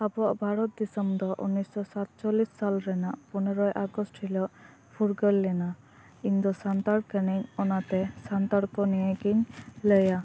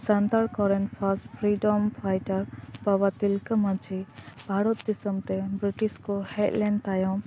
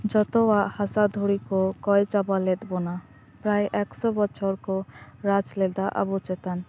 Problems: none marked